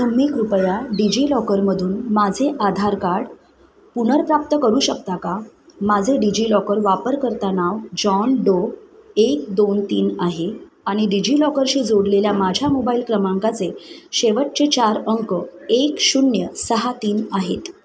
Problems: none marked